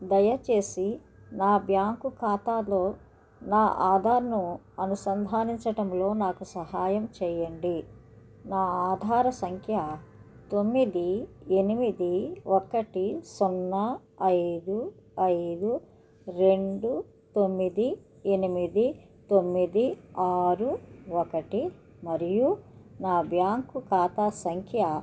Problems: none marked